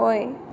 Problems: none marked